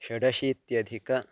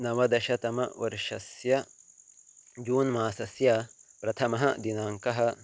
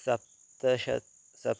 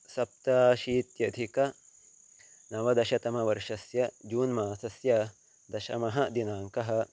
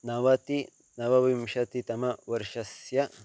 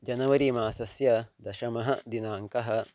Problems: constant background noise